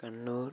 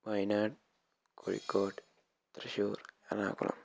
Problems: low volume